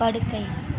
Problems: constant background noise, background conversations at intervals